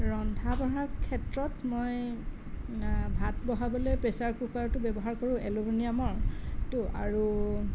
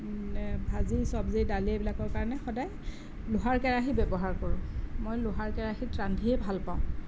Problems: none marked